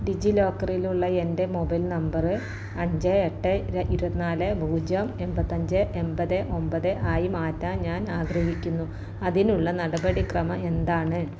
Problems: none marked